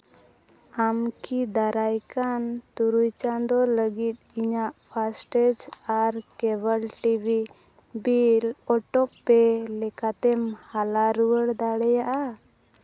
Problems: none marked